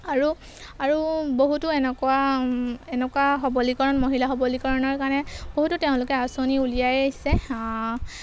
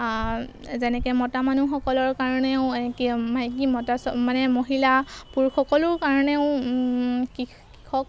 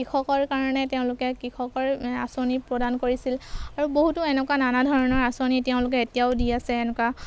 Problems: background sounds at intervals